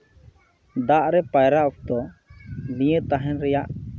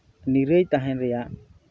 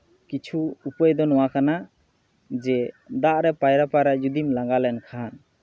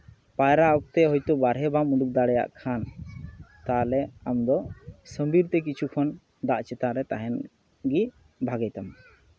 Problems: background conversations at intervals